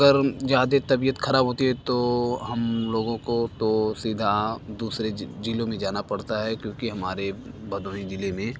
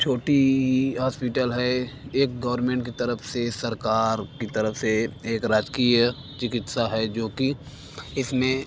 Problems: constant background noise, background conversations at intervals